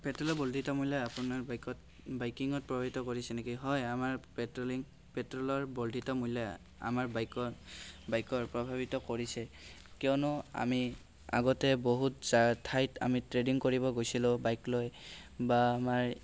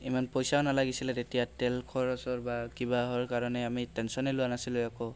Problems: none marked